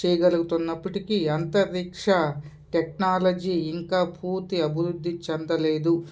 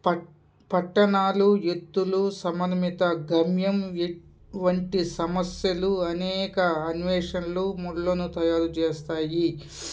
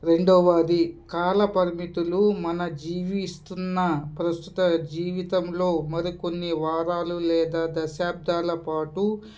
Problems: constant background noise